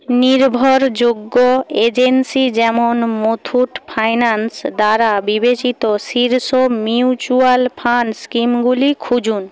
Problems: constant background noise